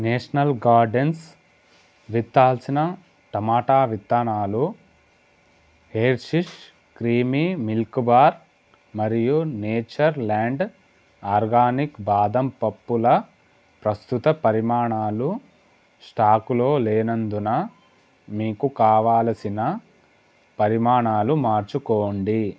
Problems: constant background noise